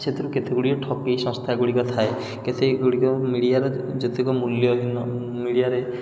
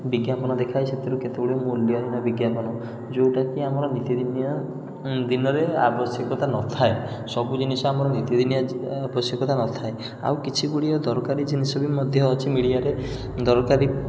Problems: background sounds at intervals